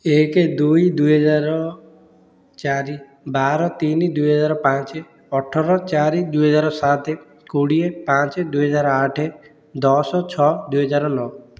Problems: none marked